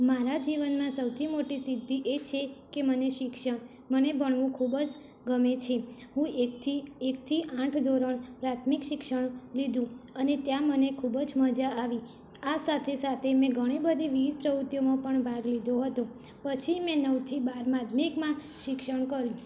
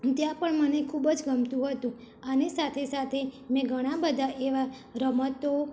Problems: constant background noise